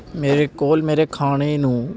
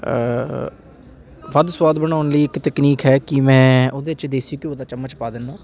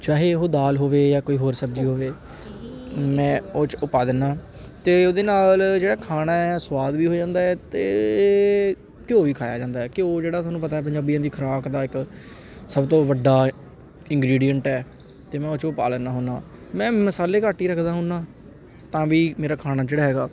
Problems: constant background noise, background conversations at intervals